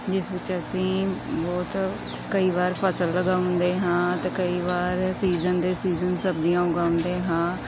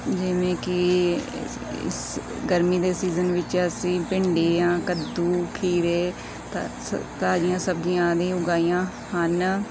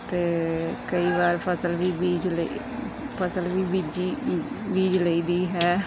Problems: background sounds at intervals, background conversations at intervals